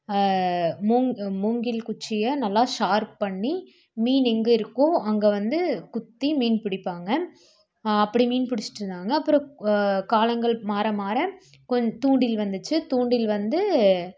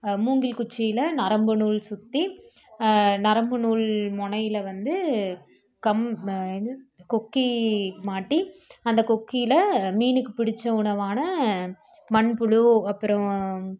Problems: none marked